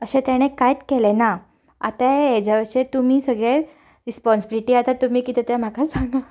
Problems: background conversations at intervals